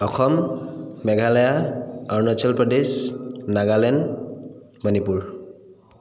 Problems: echo